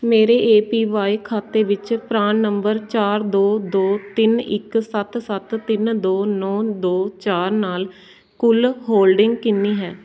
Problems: constant background noise, background conversations at intervals